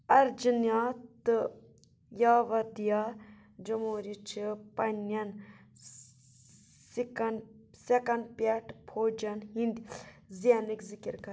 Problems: background sounds at intervals